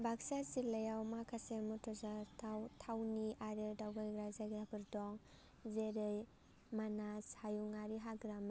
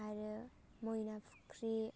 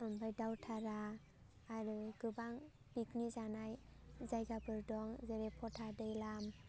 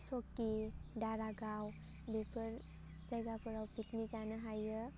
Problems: low volume